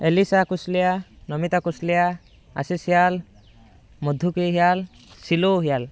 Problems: background sounds at intervals, background conversations at intervals